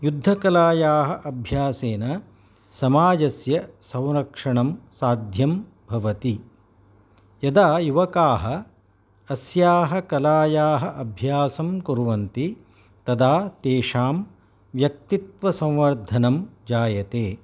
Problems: none marked